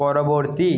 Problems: echo